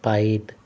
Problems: none marked